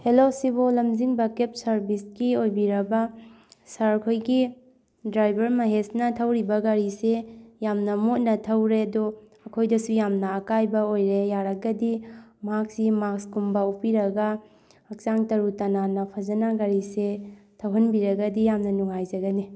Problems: background conversations at intervals